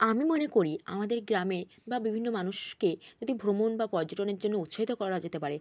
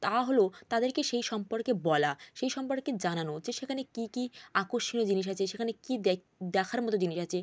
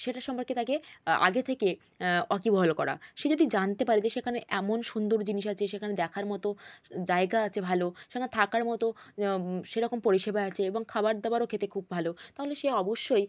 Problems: background conversations at intervals